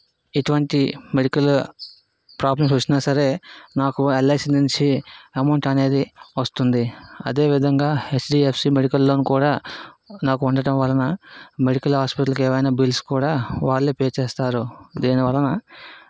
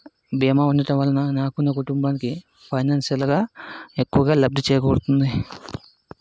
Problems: constant background noise